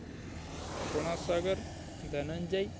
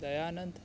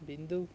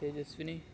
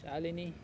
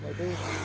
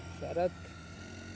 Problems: constant background noise